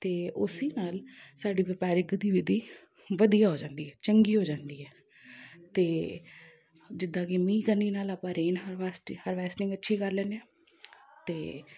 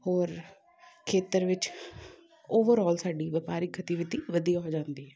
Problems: background conversations at intervals